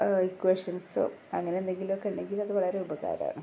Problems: low volume